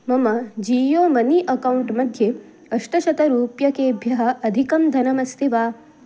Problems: none marked